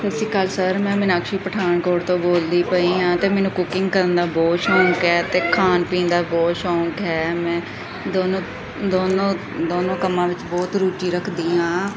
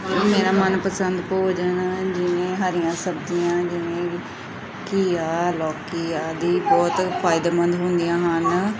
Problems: constant background noise, background conversations at intervals